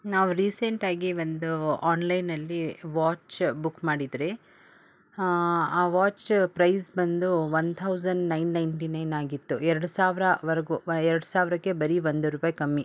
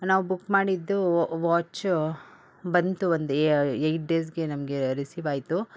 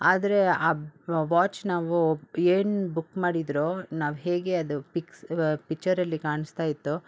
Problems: none marked